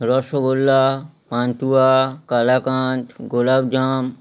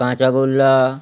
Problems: none marked